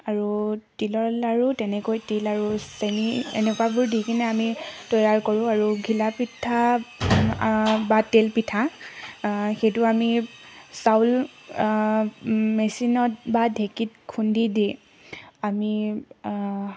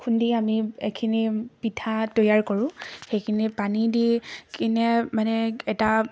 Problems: constant background noise, background conversations at intervals